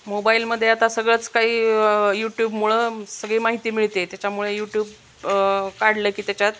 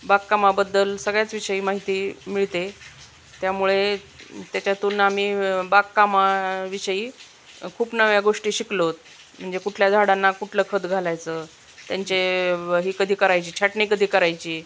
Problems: none marked